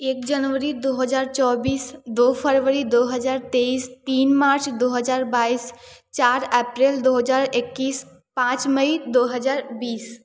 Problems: none marked